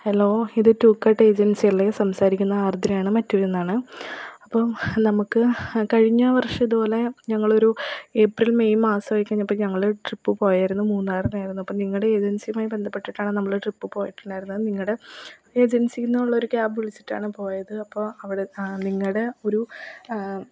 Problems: low volume